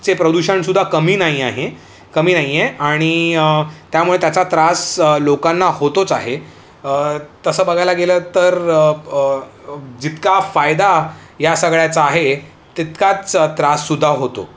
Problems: none marked